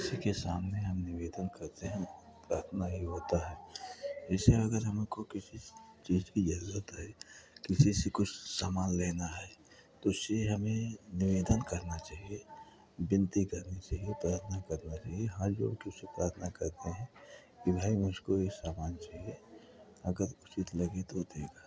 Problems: background sounds at intervals, continuous background conversations